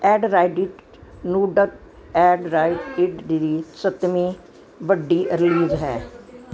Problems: constant background noise, continuous background conversations